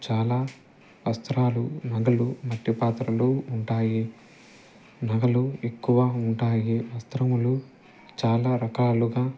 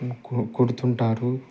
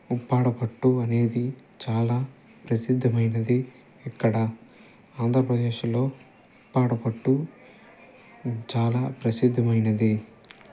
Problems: constant background noise, low volume